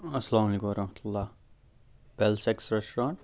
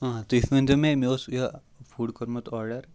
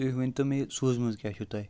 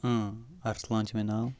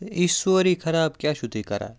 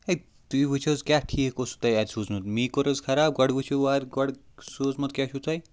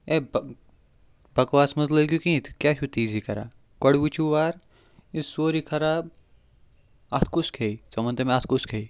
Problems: background sounds at intervals